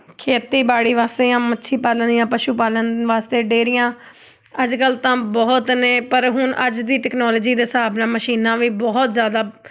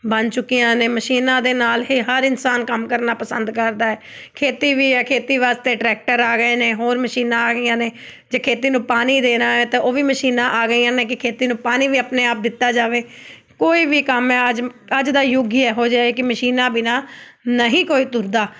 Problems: none marked